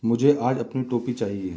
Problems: background sounds at intervals